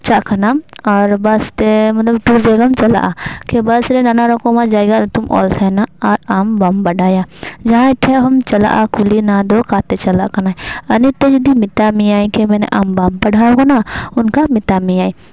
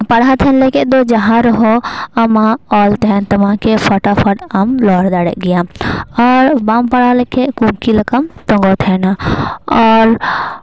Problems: background sounds at intervals